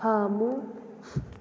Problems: low volume